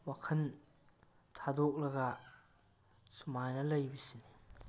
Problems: none marked